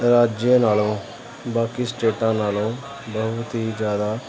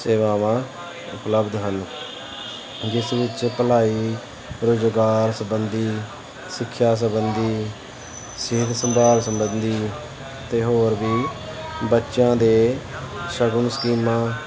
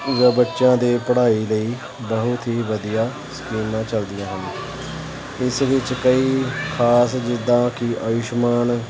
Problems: none marked